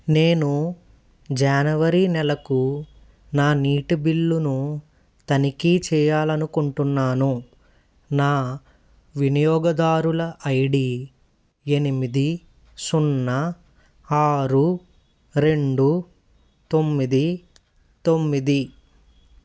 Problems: constant background noise